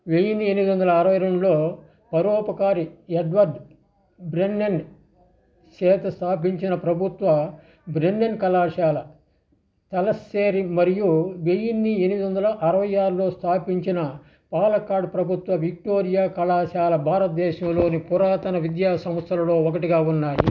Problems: background sounds at intervals